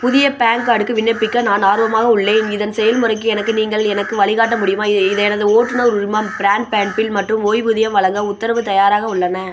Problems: constant background noise